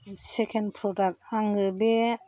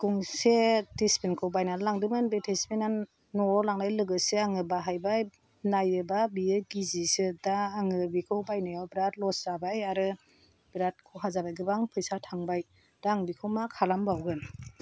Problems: none marked